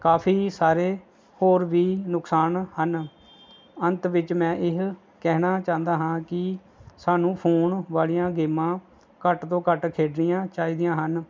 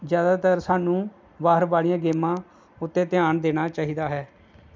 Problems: none marked